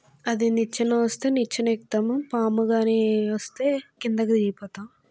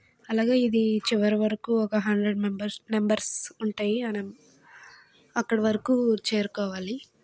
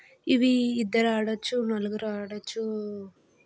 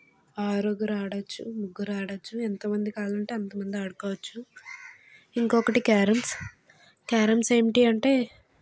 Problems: none marked